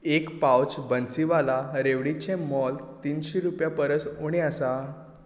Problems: background sounds at intervals